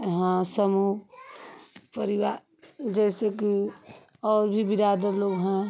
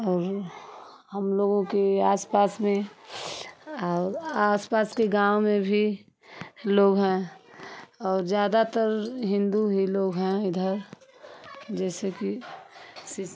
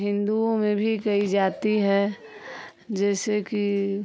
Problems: constant background noise